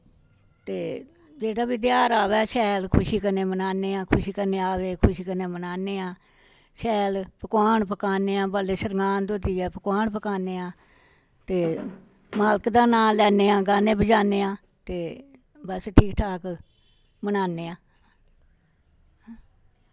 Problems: none marked